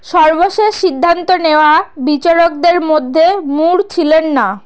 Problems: none marked